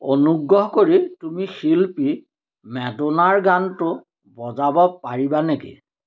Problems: none marked